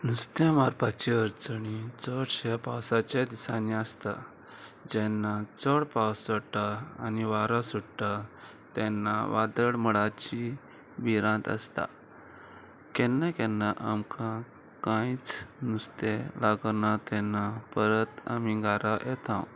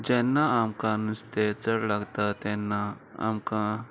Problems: constant background noise